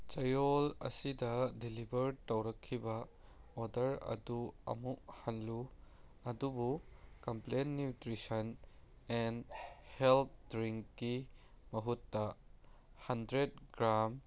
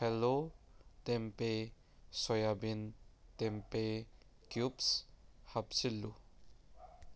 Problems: background sounds at intervals